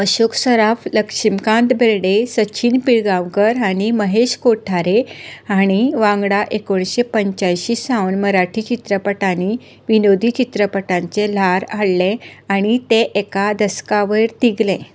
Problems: constant background noise